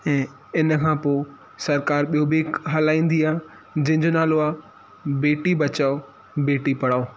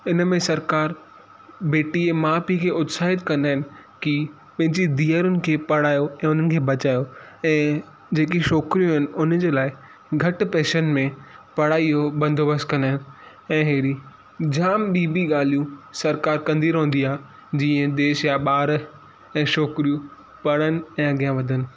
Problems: constant background noise